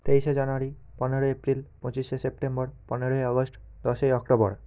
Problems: none marked